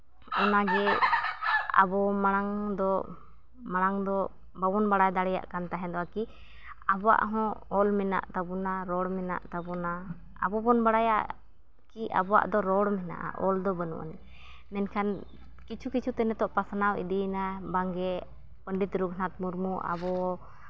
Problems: background sounds at intervals